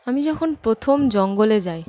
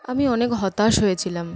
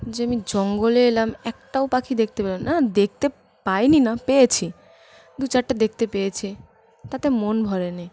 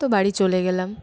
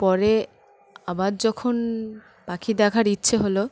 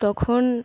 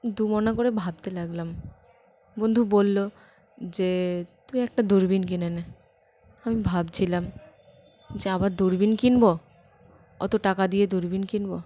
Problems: constant background noise, continuous background conversations